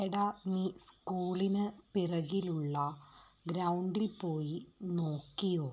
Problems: low volume